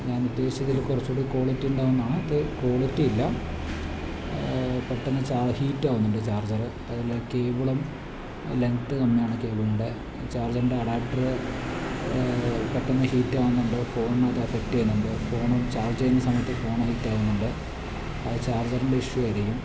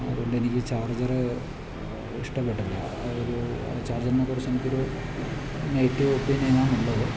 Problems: constant background noise, low volume